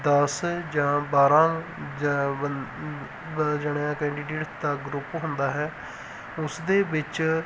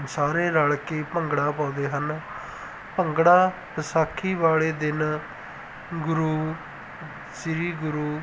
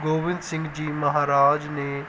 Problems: background sounds at intervals